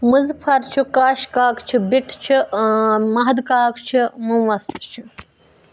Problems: background sounds at intervals